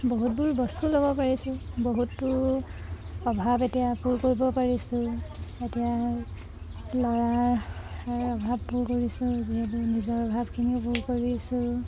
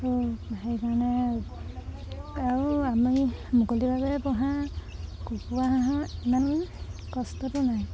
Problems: constant background noise